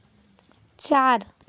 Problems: constant background noise